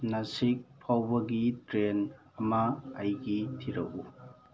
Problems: background conversations at intervals